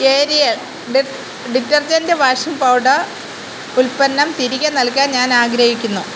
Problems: constant background noise